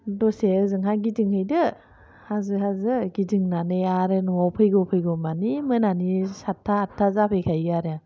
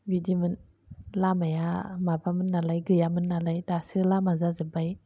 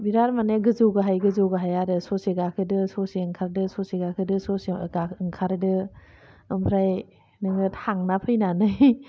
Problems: none marked